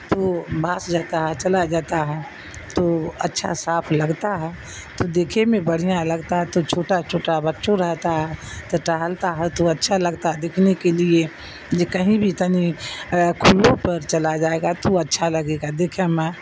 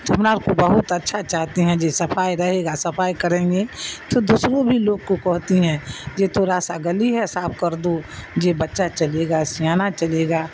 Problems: constant background noise